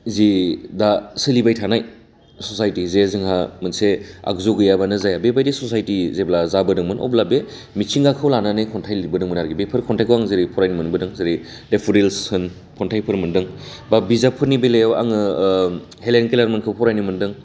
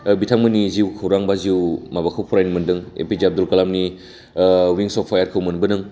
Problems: none marked